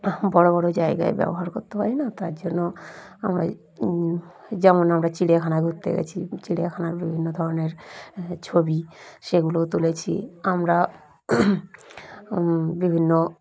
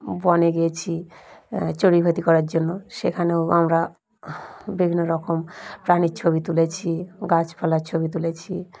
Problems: none marked